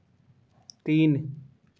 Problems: none marked